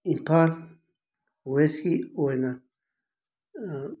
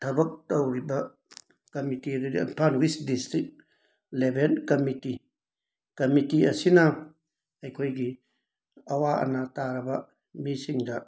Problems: background sounds at intervals